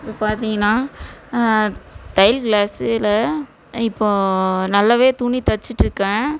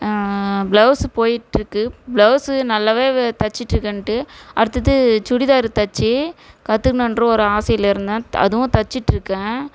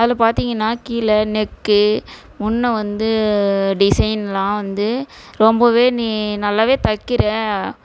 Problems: none marked